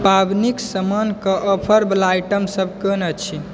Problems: background conversations at intervals